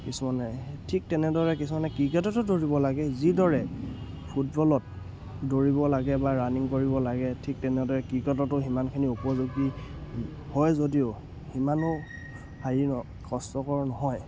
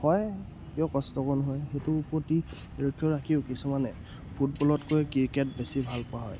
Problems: background sounds at intervals